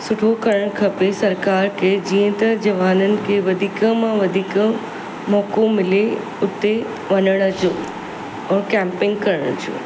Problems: constant background noise